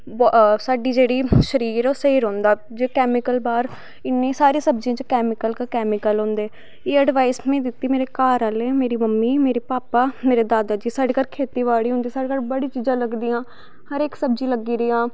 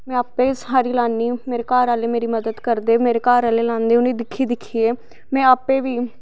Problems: background sounds at intervals